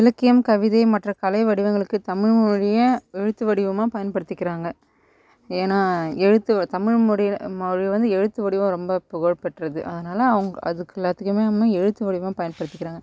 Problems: none marked